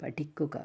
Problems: none marked